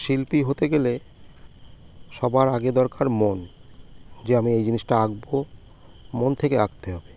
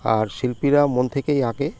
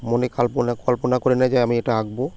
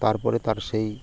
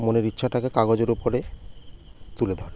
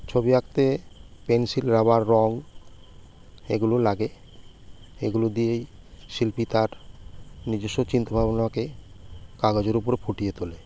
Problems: constant background noise